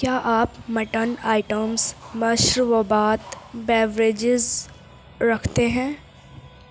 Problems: constant background noise